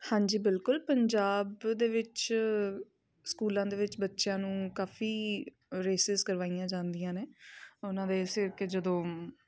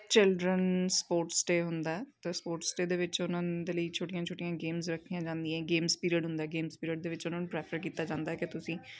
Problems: background sounds at intervals, continuous background conversations